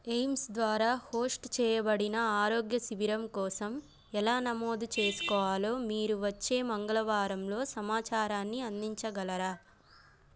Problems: none marked